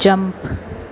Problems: none marked